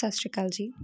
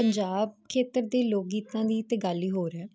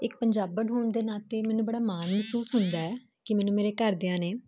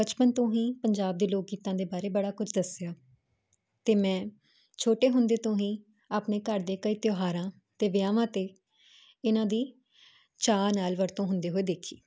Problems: constant background noise